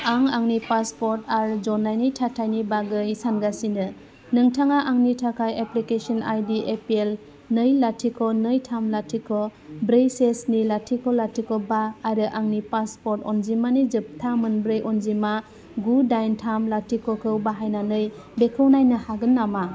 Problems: constant background noise